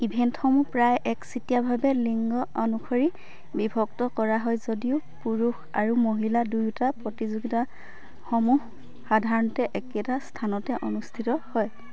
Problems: constant background noise, low volume